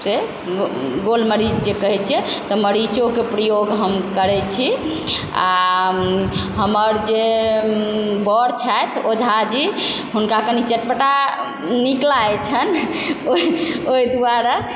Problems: constant background noise